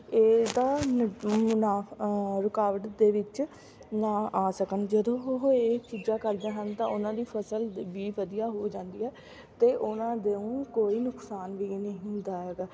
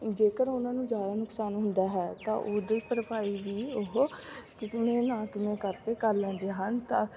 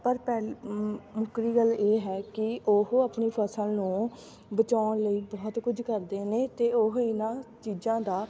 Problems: constant background noise, continuous background conversations